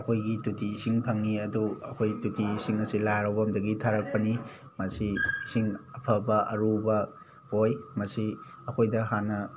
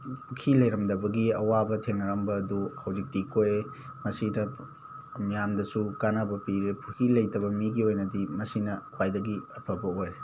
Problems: constant background noise